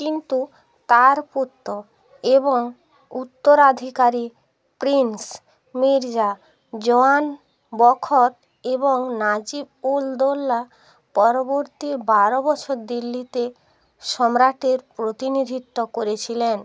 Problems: none marked